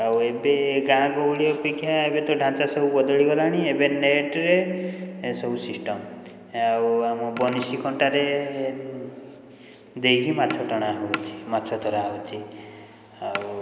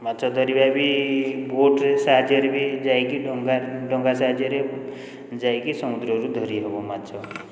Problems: constant background noise, continuous background conversations